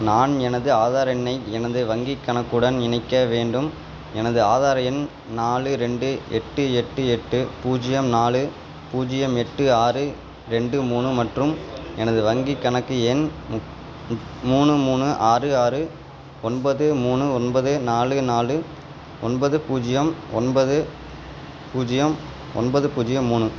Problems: constant background noise